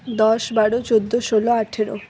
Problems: none marked